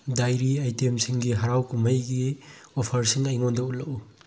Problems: low volume